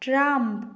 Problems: constant background noise